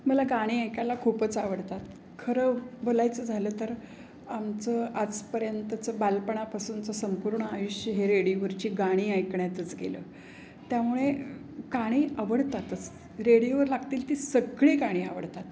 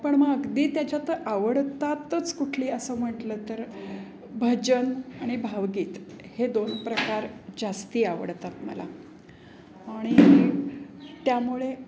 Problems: none marked